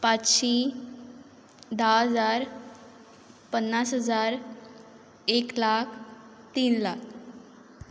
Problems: constant background noise